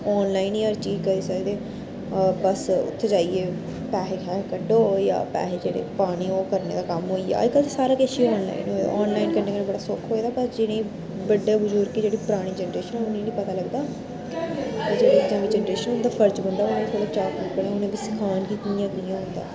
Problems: constant background noise